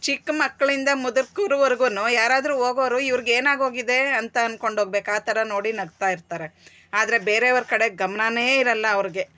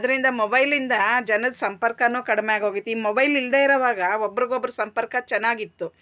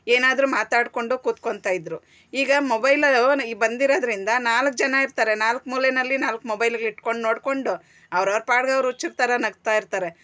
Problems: none marked